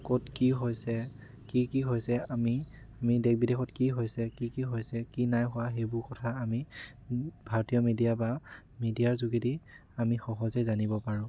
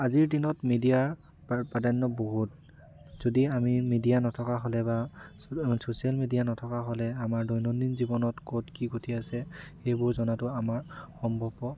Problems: constant background noise